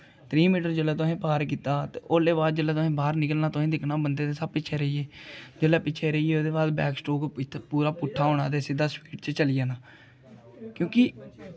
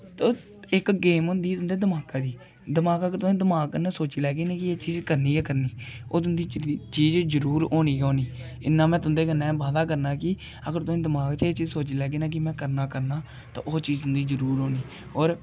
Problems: none marked